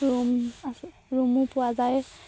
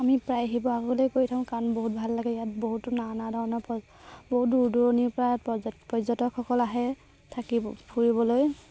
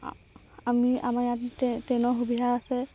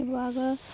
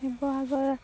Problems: constant background noise